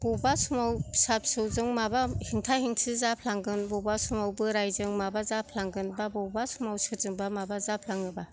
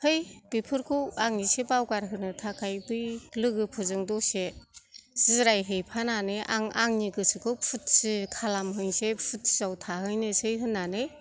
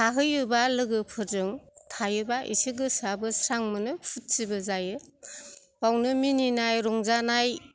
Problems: none marked